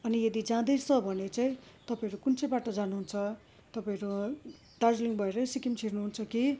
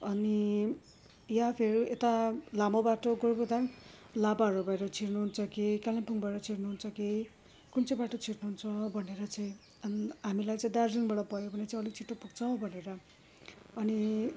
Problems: background sounds at intervals